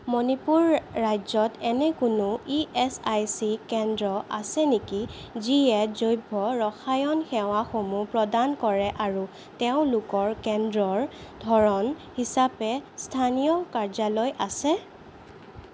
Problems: none marked